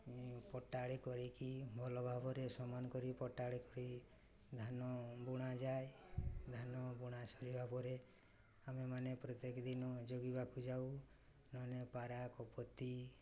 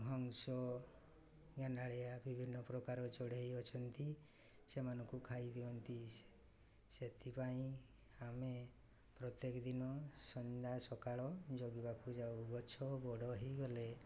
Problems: none marked